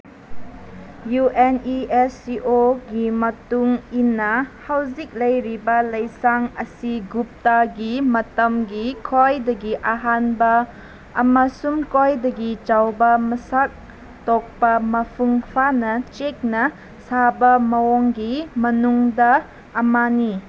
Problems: none marked